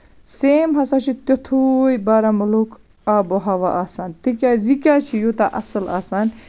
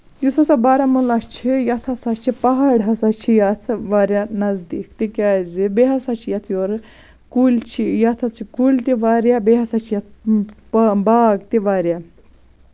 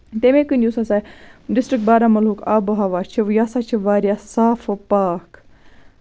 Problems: none marked